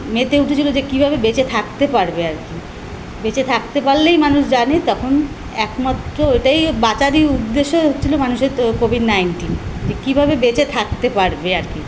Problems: constant background noise